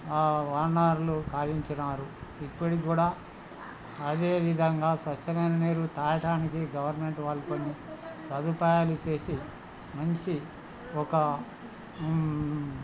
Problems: constant background noise, background conversations at intervals